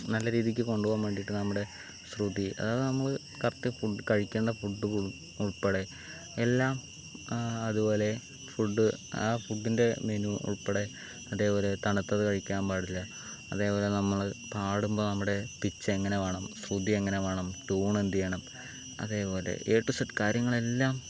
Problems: constant background noise, low volume